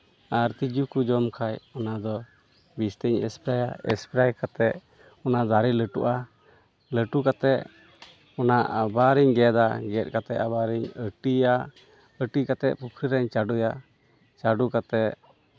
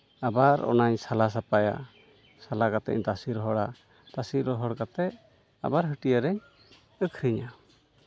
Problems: none marked